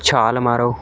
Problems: background sounds at intervals